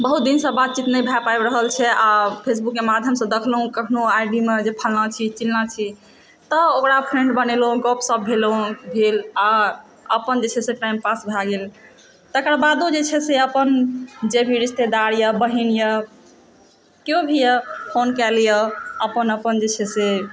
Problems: background sounds at intervals, background conversations at intervals